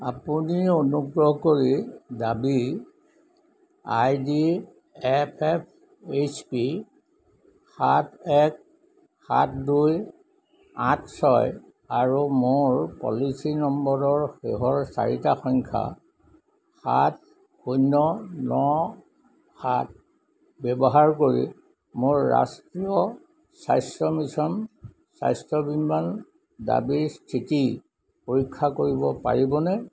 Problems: none marked